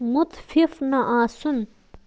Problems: constant background noise